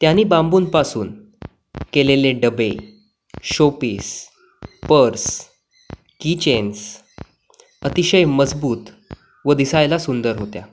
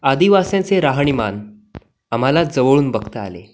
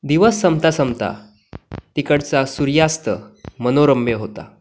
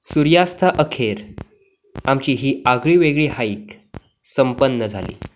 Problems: none marked